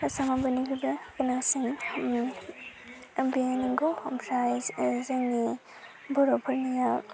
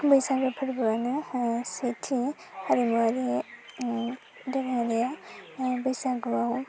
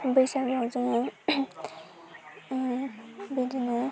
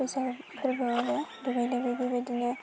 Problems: constant background noise